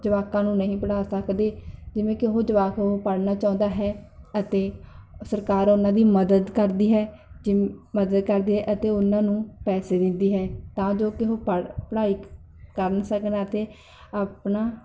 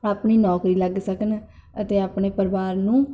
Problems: none marked